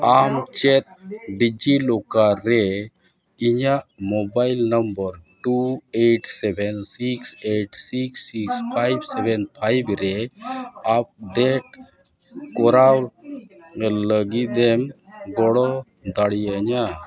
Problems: background sounds at intervals, continuous background conversations